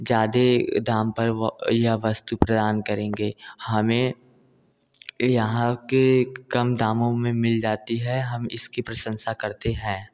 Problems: none marked